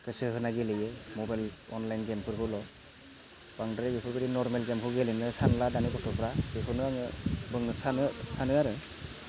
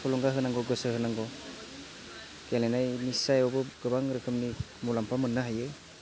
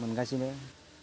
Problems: constant background noise